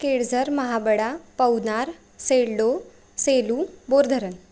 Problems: background sounds at intervals